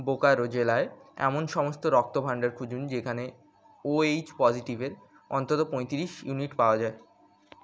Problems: constant background noise